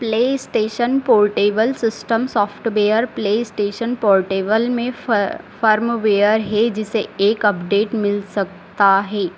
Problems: constant background noise